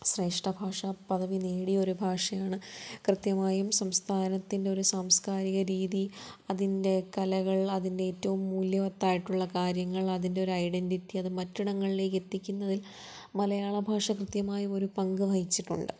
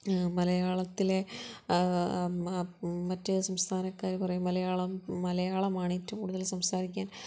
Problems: low volume